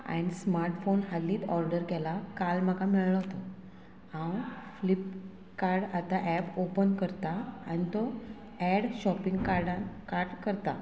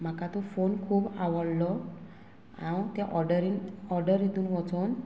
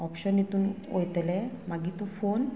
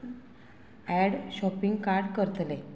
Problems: constant background noise